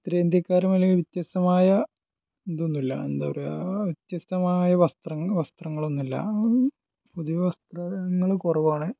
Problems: low volume